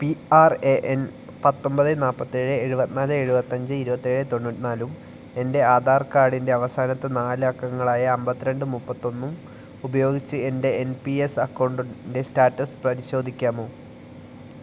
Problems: none marked